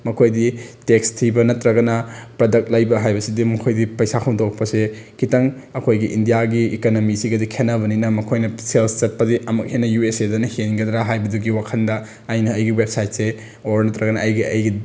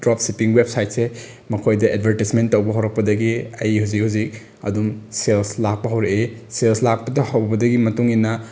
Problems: none marked